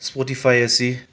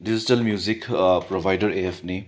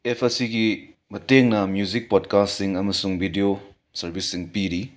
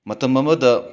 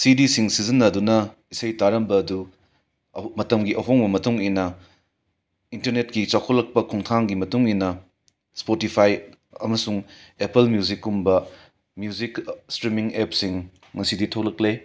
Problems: background sounds at intervals